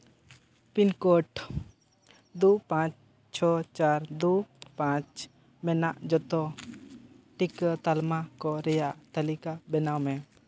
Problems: background sounds at intervals